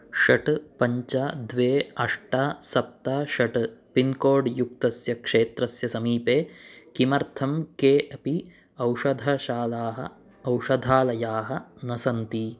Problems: none marked